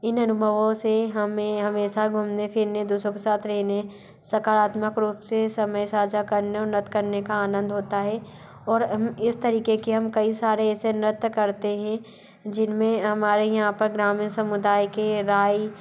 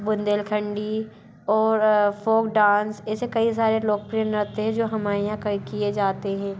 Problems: constant background noise